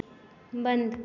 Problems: background sounds at intervals